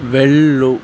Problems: constant background noise